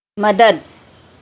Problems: none marked